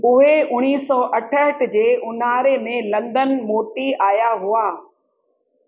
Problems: echo